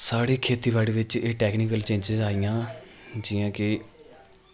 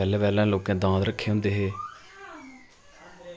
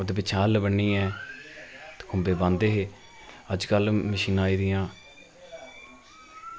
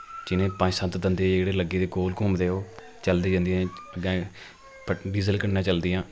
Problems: constant background noise